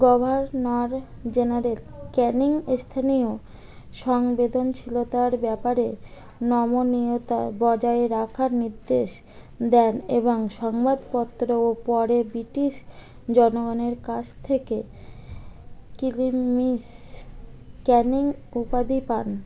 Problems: none marked